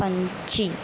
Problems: constant background noise